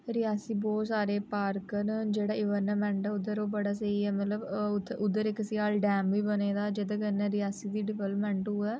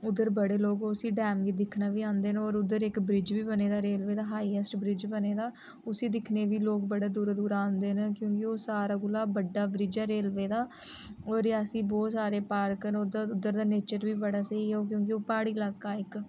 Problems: none marked